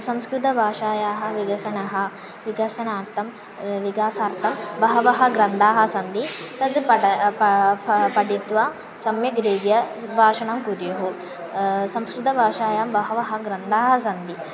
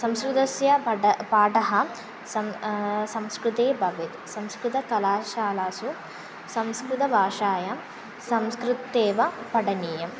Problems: constant background noise, continuous background conversations